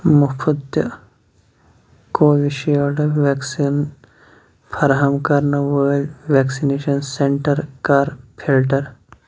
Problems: none marked